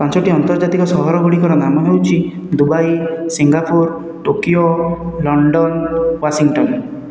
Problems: none marked